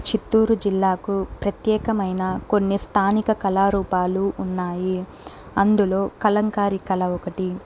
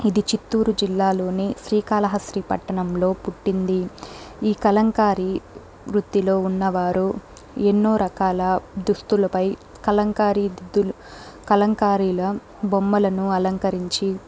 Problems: background sounds at intervals